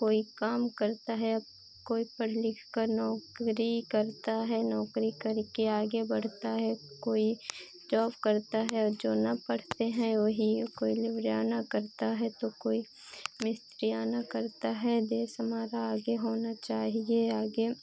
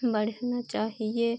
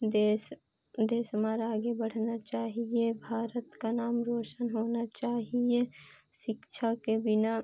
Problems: none marked